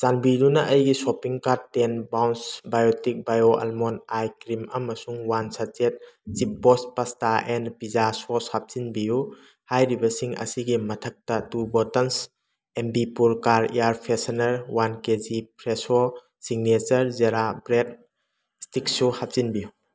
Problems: background sounds at intervals